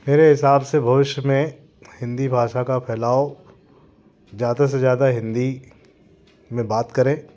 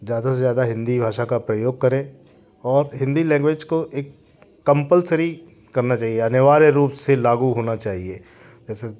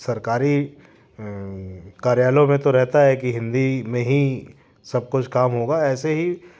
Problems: constant background noise, background conversations at intervals